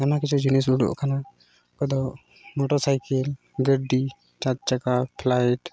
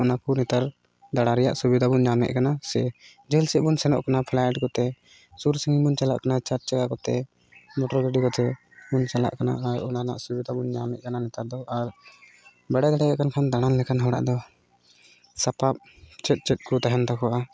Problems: none marked